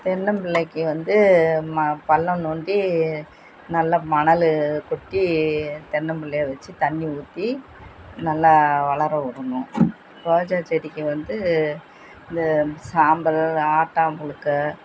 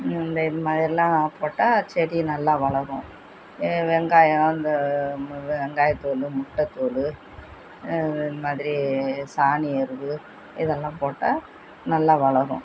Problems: none marked